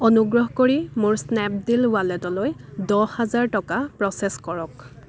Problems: constant background noise